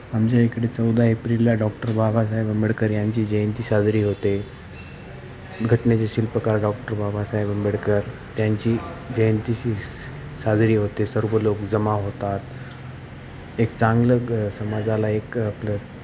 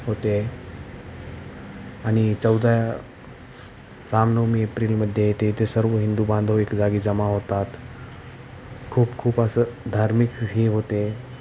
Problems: none marked